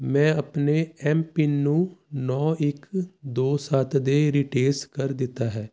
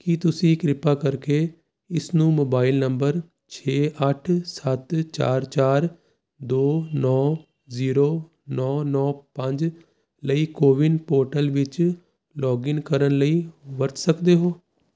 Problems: constant background noise